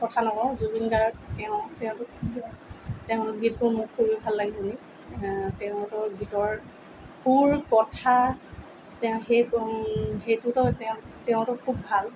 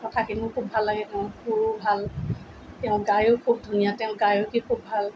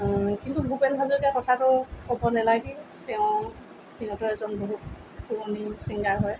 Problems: none marked